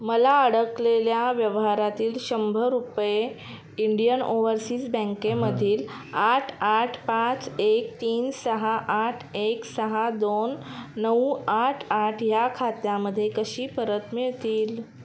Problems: none marked